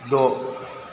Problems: none marked